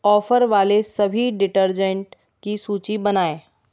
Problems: background sounds at intervals